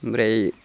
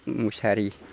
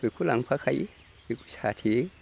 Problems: constant background noise